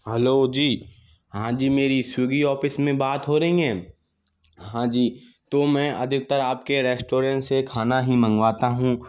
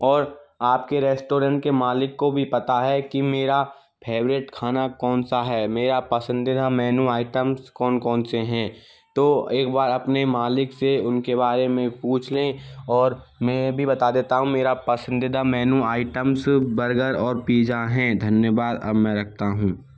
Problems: background sounds at intervals